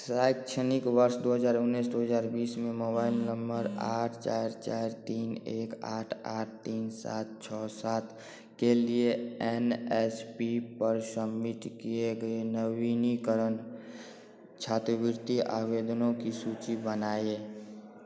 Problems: none marked